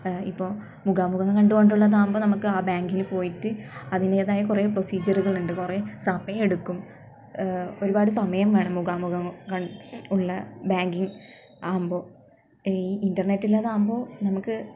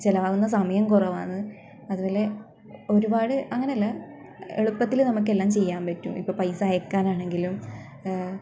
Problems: background sounds at intervals